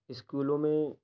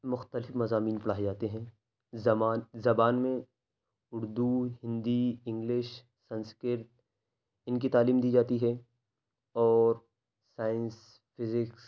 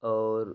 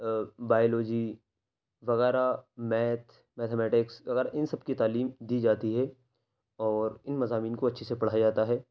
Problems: none marked